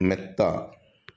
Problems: none marked